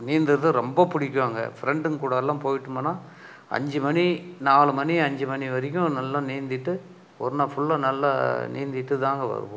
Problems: none marked